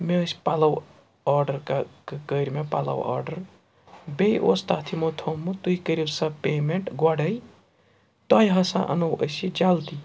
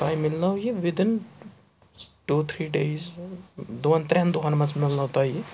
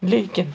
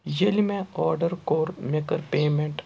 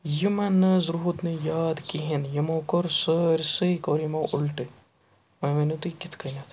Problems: background sounds at intervals